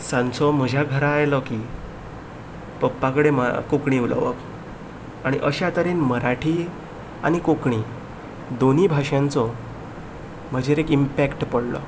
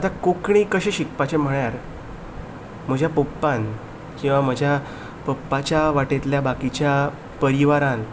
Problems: none marked